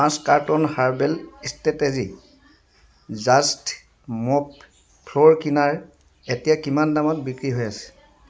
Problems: background sounds at intervals